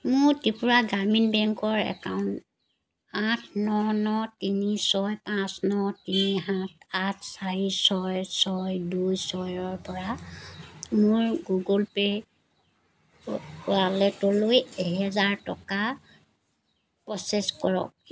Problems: constant background noise